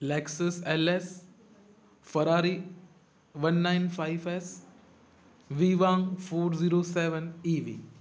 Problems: constant background noise, echo